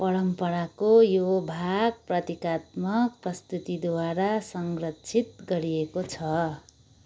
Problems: none marked